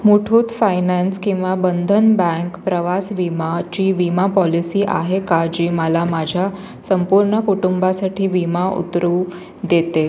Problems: none marked